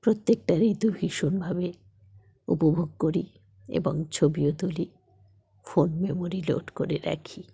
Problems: none marked